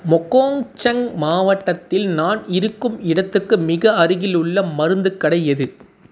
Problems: none marked